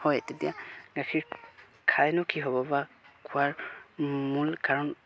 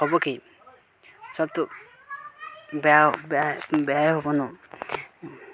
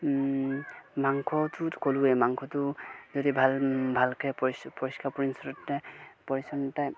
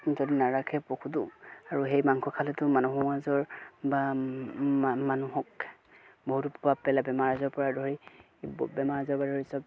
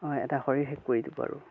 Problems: background sounds at intervals, continuous background conversations